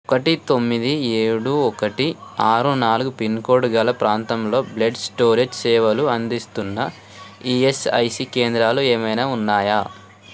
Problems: constant background noise, continuous background conversations